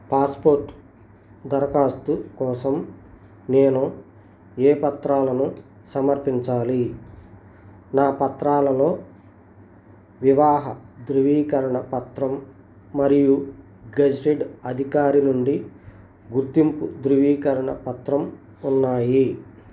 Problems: none marked